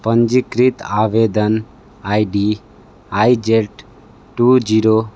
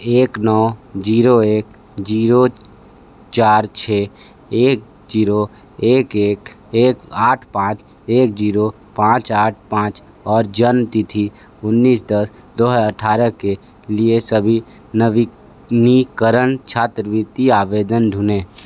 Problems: background sounds at intervals